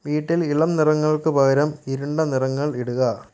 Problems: none marked